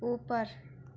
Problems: constant background noise